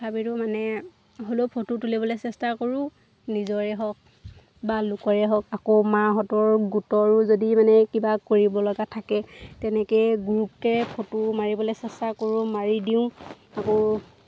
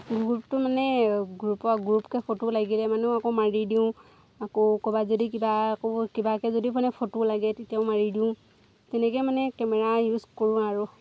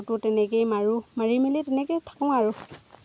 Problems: background sounds at intervals